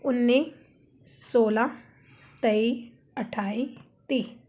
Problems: background sounds at intervals